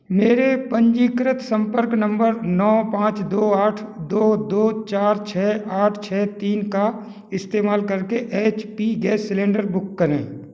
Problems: background sounds at intervals